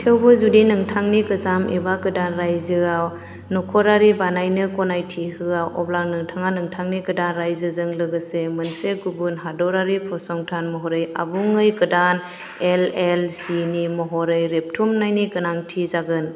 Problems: constant background noise